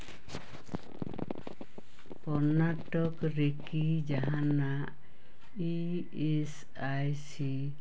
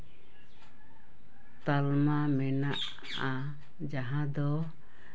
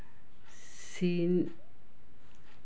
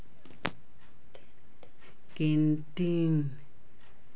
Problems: background sounds at intervals, background conversations at intervals